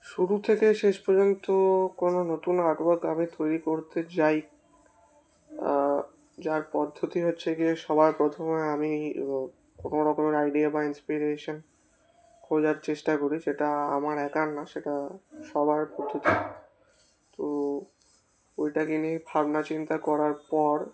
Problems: constant background noise